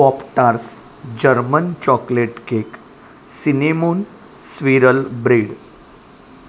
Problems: constant background noise